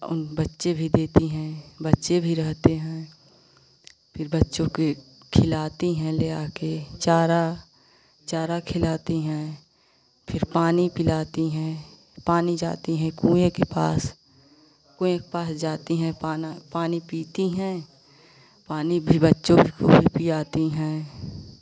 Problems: constant background noise